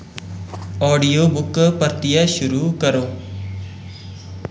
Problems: none marked